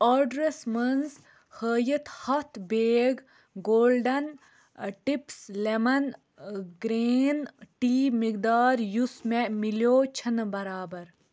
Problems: none marked